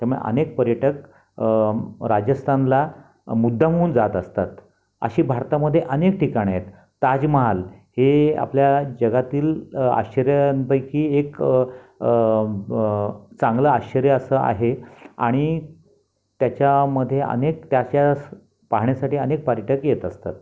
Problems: none marked